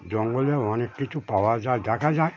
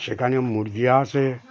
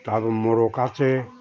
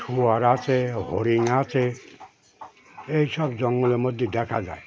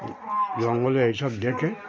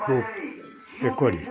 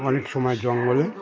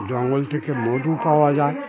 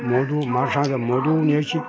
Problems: constant background noise, continuous background conversations